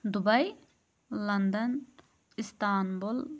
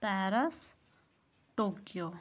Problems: background sounds at intervals